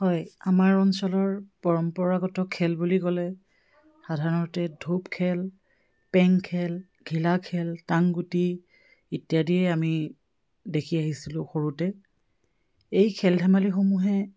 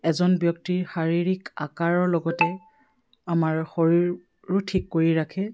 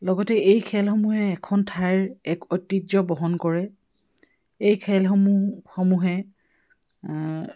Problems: background sounds at intervals